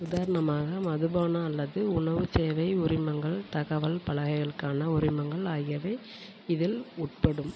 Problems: constant background noise